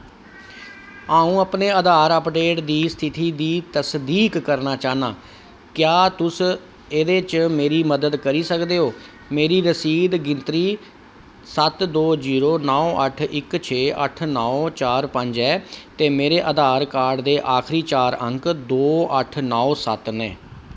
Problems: none marked